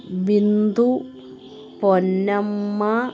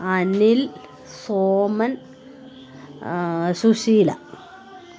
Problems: continuous background conversations